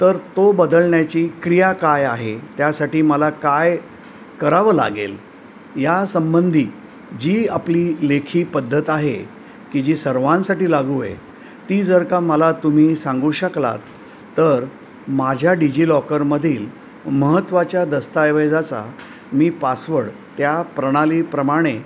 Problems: none marked